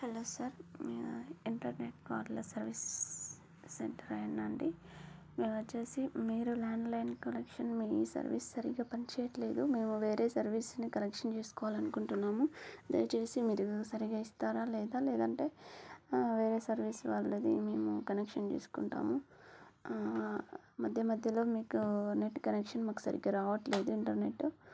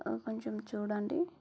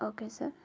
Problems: low volume